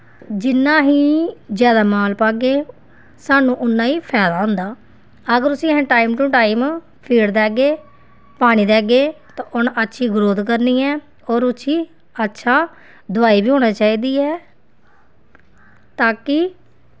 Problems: background sounds at intervals